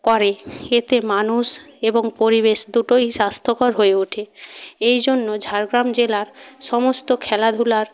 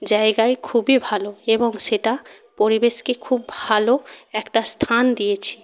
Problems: none marked